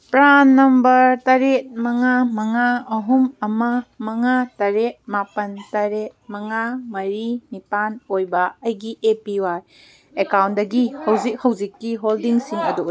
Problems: background sounds at intervals